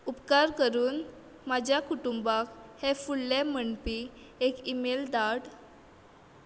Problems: background sounds at intervals